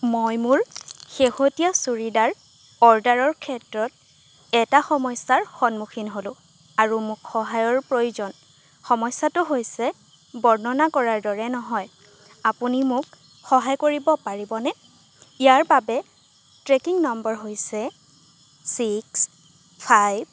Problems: none marked